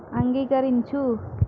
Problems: none marked